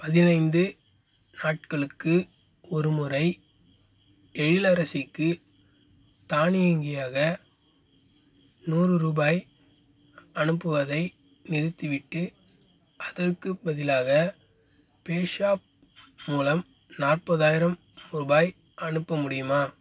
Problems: constant background noise